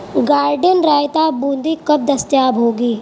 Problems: constant background noise